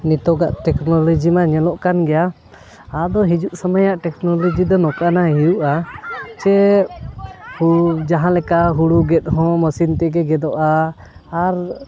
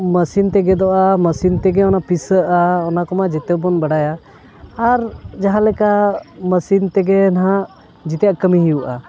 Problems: constant background noise